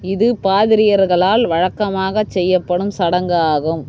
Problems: none marked